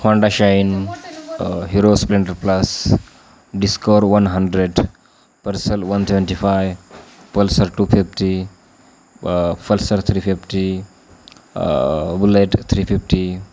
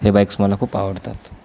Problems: continuous background conversations